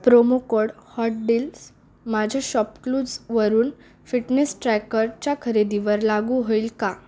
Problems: background sounds at intervals, background conversations at intervals